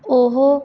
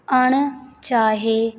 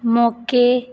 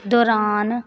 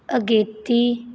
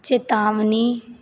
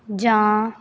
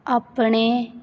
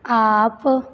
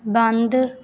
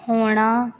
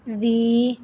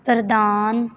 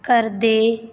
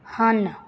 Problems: constant background noise